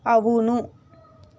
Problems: constant background noise